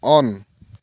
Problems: none marked